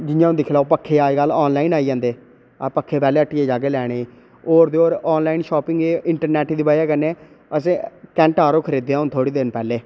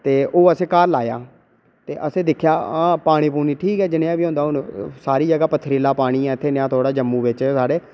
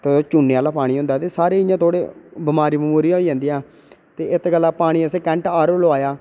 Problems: none marked